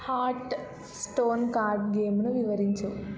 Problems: none marked